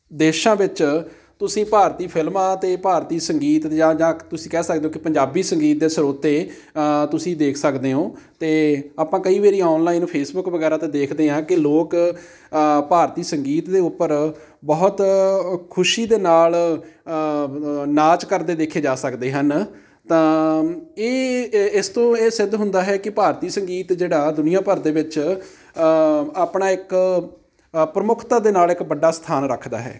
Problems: background sounds at intervals